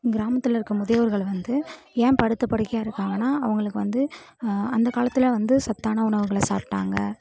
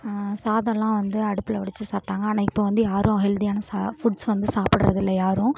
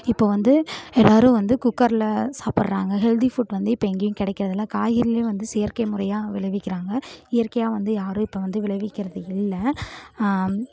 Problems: none marked